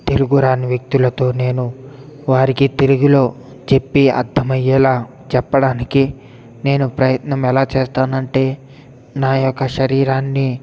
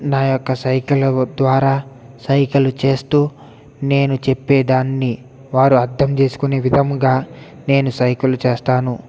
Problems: none marked